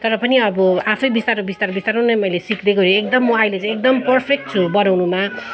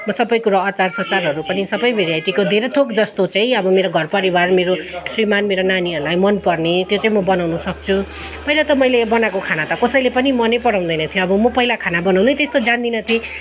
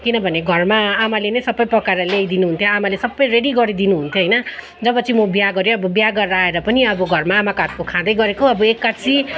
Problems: continuous background conversations